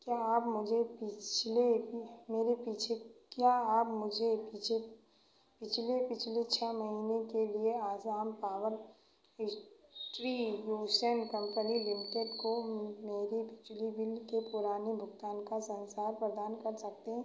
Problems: background sounds at intervals, echo